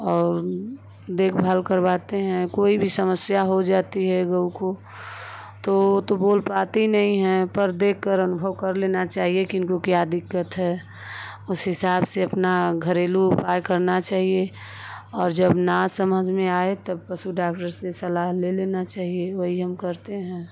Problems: constant background noise